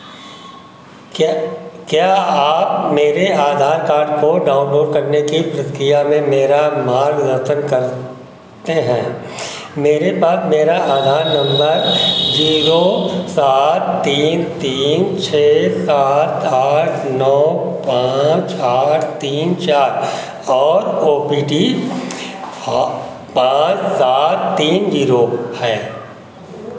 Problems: constant background noise